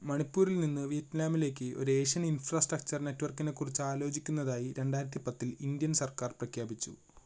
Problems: constant background noise, low volume